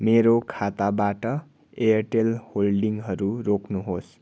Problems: none marked